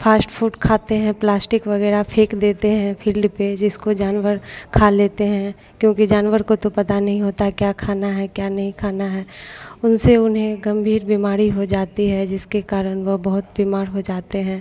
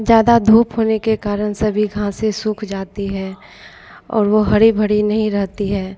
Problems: constant background noise